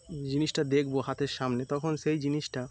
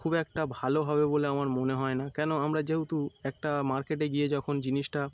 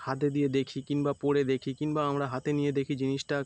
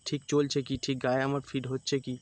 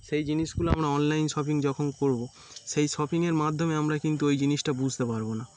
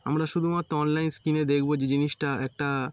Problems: constant background noise